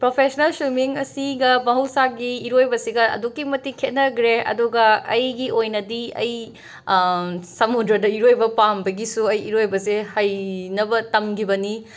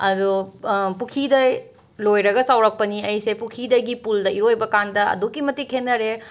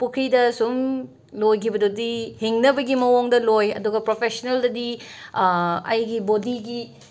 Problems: constant background noise